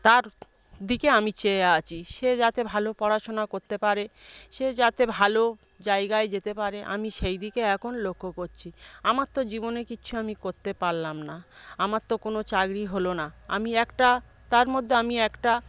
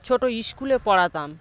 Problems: none marked